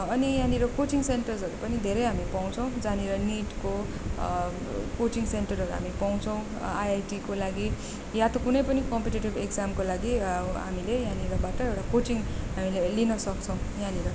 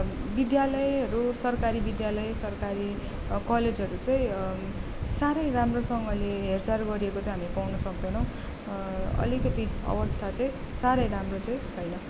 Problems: background conversations at intervals